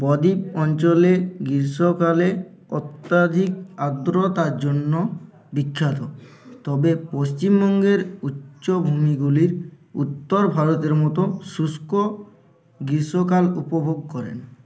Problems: background sounds at intervals, continuous background conversations